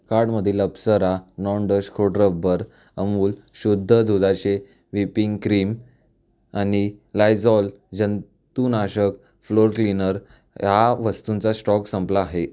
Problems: none marked